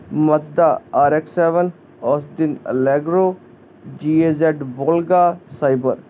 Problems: constant background noise